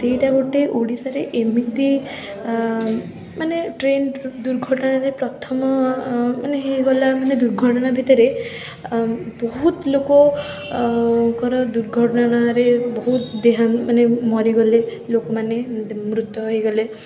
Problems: background sounds at intervals, continuous background conversations